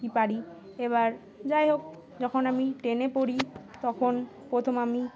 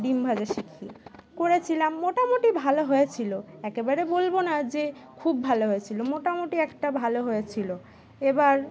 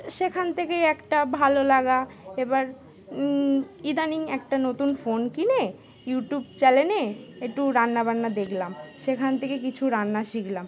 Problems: constant background noise, continuous background conversations